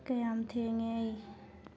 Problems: low volume